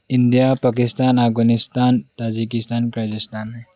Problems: background sounds at intervals, low volume